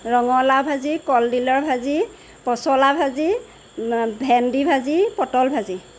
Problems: none marked